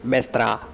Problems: constant background noise